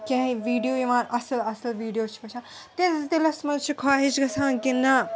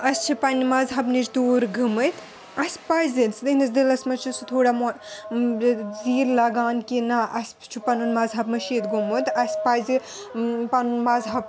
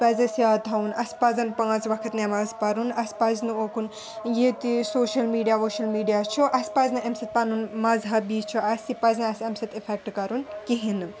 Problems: continuous background conversations